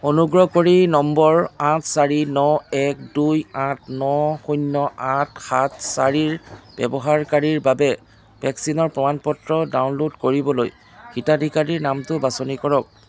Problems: constant background noise